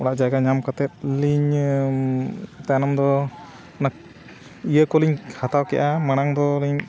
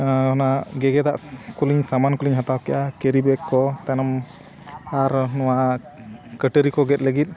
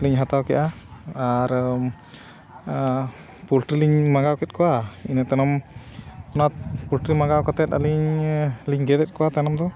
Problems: constant background noise